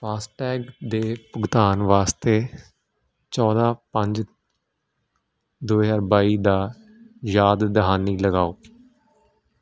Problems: constant background noise